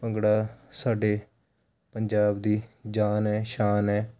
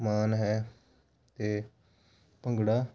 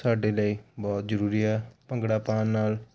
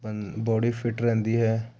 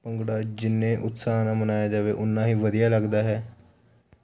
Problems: none marked